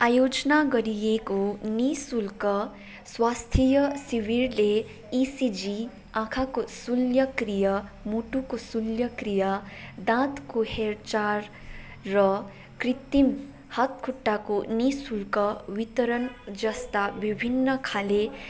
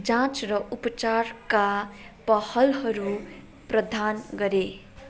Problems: background sounds at intervals